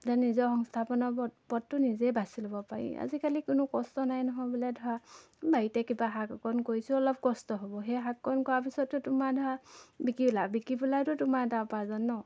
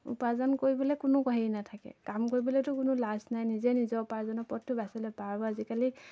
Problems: constant background noise